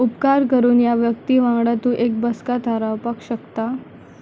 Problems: constant background noise, low volume